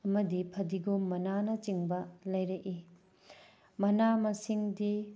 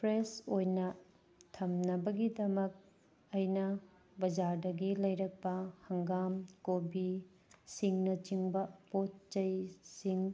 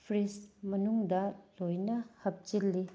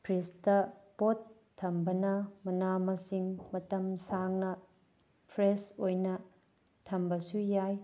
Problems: none marked